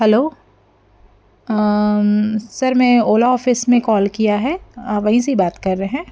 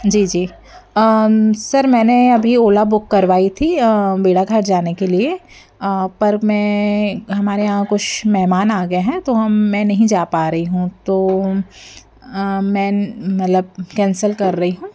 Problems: background sounds at intervals